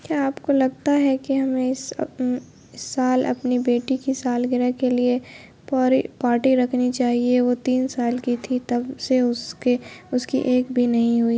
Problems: constant background noise